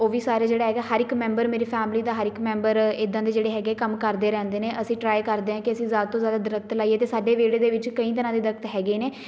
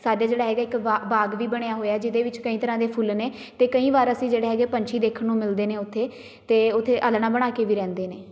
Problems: constant background noise